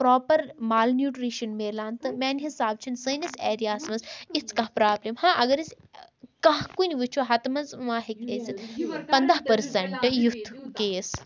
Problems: continuous background conversations